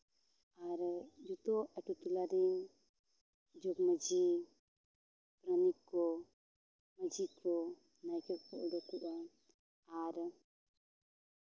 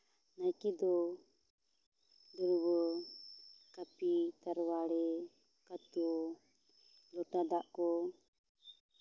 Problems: low volume